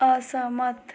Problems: none marked